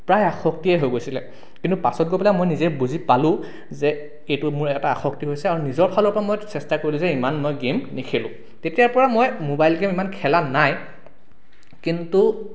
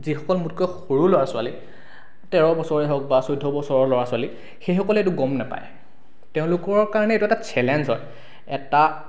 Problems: none marked